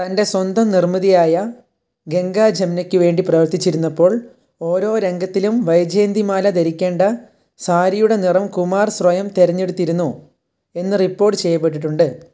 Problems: constant background noise, low volume